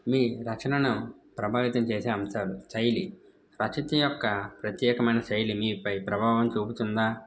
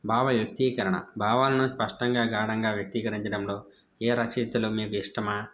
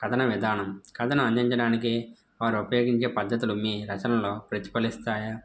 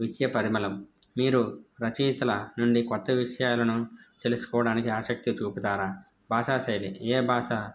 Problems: background sounds at intervals